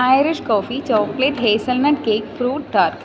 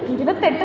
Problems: background conversations at intervals, low volume